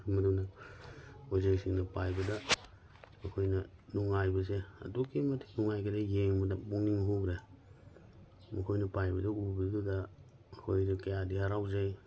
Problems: none marked